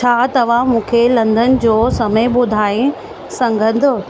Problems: constant background noise